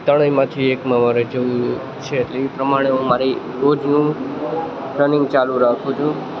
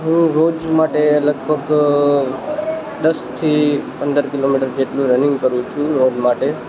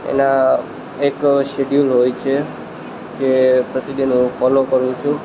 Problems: constant background noise